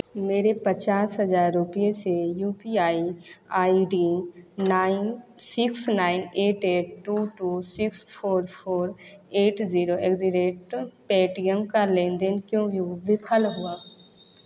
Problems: none marked